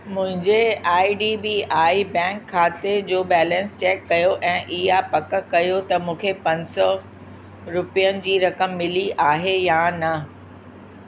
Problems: constant background noise, echo